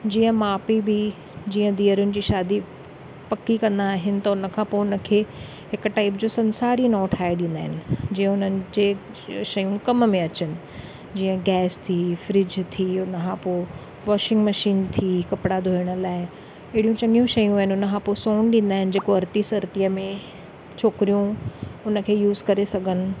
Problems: none marked